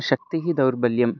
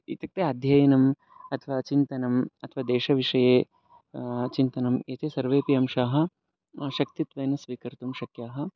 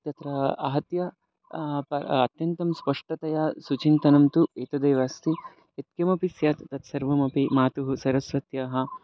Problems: background sounds at intervals